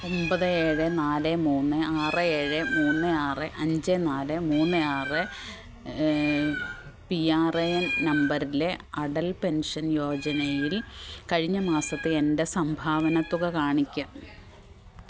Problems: background sounds at intervals